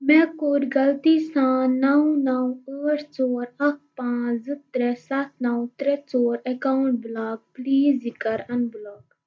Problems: none marked